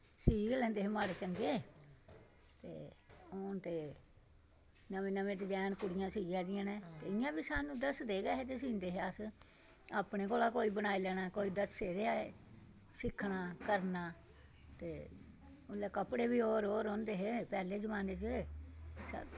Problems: constant background noise